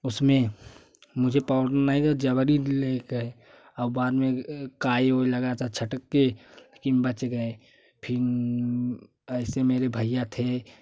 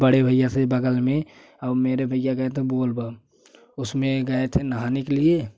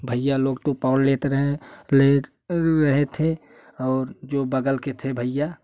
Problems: constant background noise